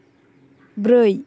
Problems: background conversations at intervals